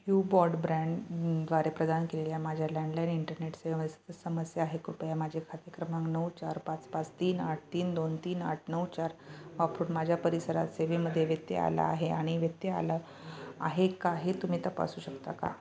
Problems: none marked